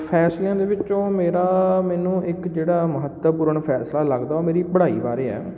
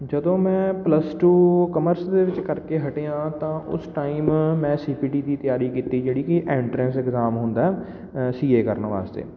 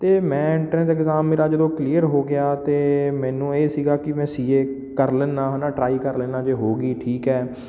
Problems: none marked